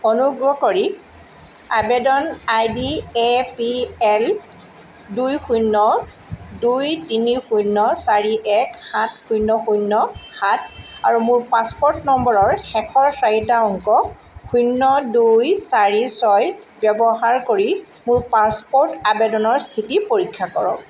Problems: constant background noise